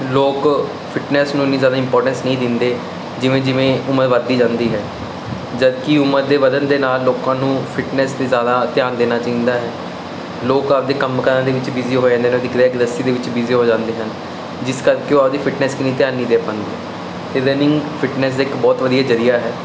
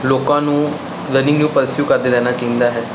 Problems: none marked